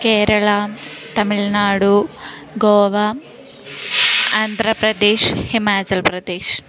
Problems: constant background noise, continuous background conversations